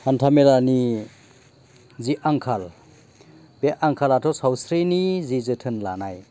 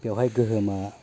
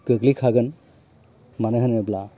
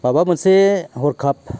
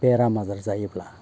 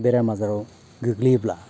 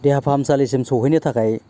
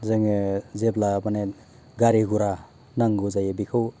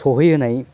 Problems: none marked